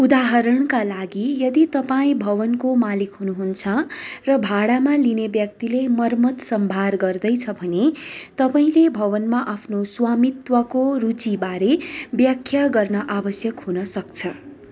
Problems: constant background noise